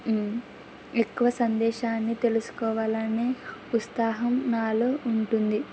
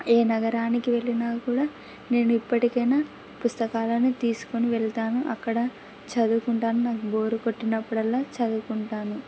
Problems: background sounds at intervals